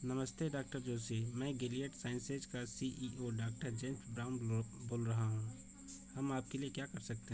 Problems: constant background noise, background conversations at intervals